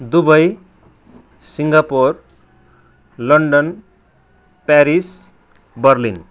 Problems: constant background noise